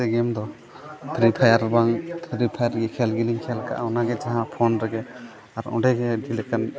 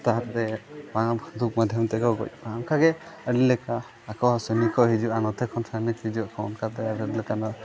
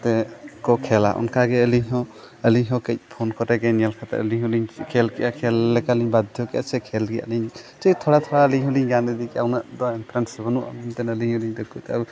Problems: constant background noise